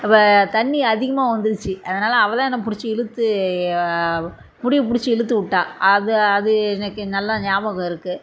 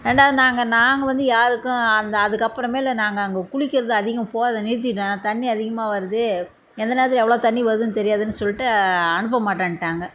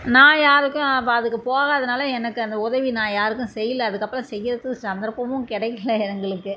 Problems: none marked